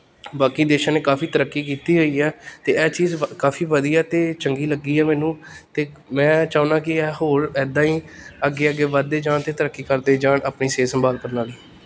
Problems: none marked